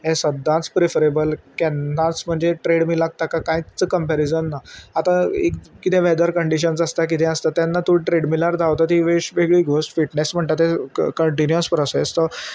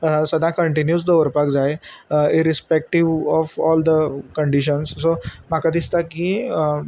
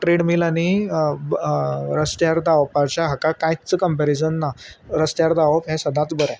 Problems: constant background noise